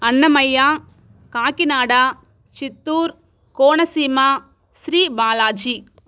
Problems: none marked